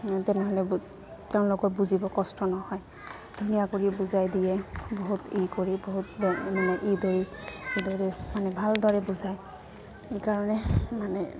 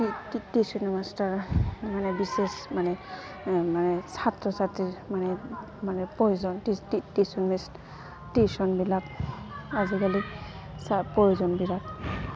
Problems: constant background noise, continuous background conversations